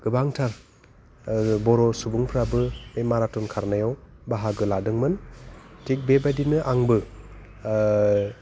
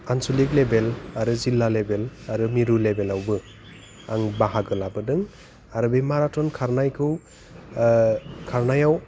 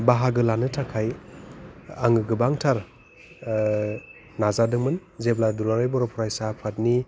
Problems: low volume